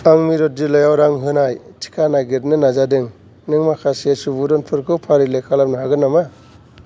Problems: background sounds at intervals